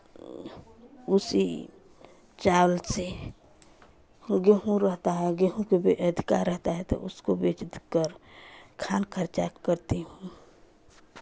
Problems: none marked